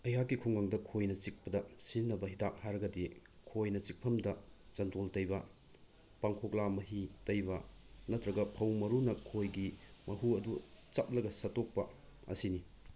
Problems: low volume